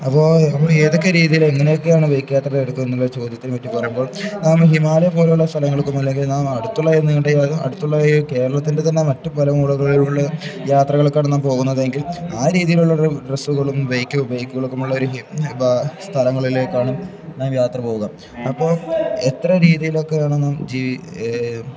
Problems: background sounds at intervals